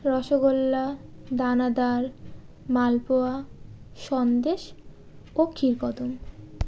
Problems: none marked